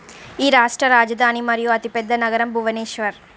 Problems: background sounds at intervals